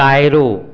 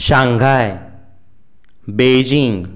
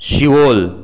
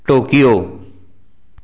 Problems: background sounds at intervals